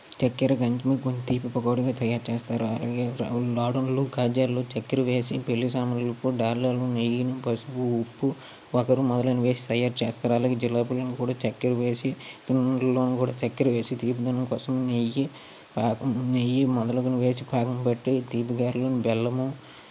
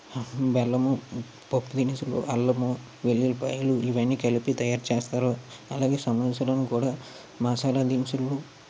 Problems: constant background noise